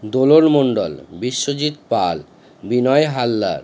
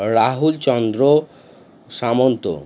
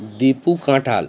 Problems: constant background noise